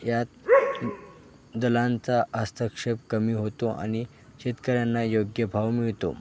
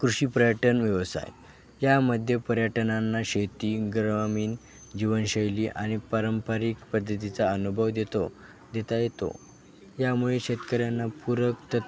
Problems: constant background noise, continuous background conversations